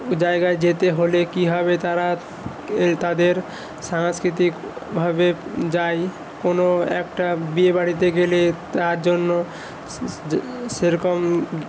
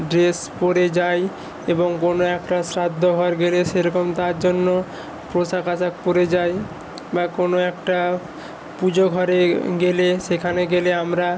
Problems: constant background noise